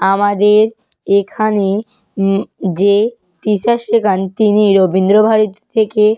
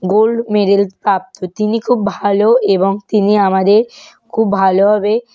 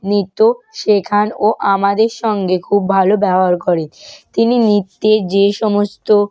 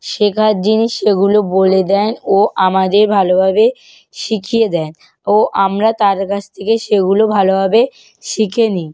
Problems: none marked